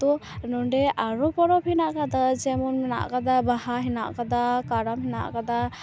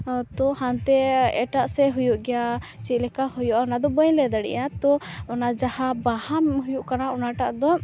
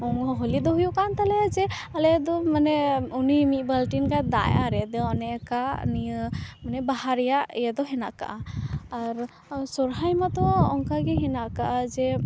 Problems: constant background noise, continuous background conversations